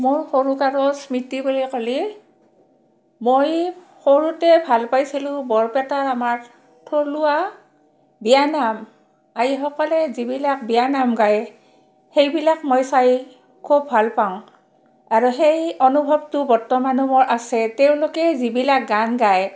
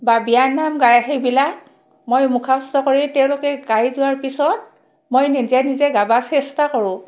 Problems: background sounds at intervals, background conversations at intervals